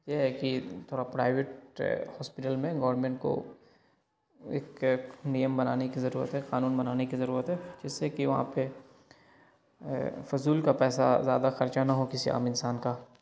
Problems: constant background noise